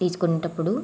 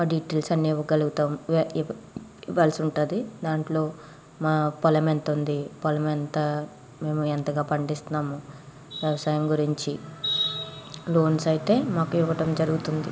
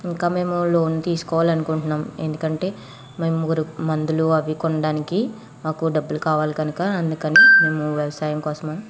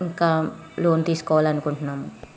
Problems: background sounds at intervals, background conversations at intervals